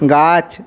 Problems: background sounds at intervals